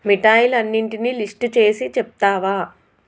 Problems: constant background noise